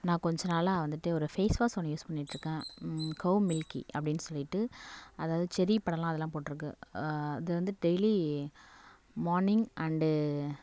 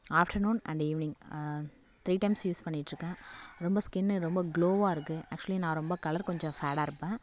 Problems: none marked